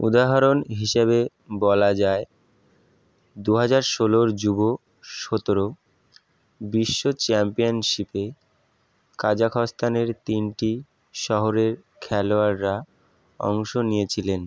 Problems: background sounds at intervals